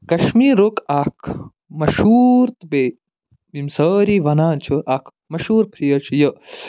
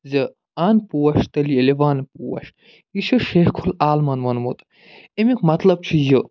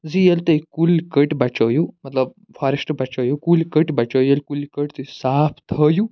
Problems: none marked